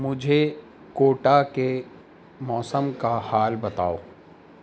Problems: constant background noise